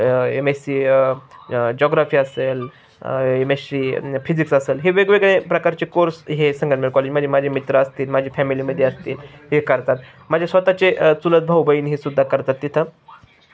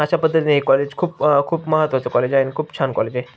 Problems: constant background noise, background conversations at intervals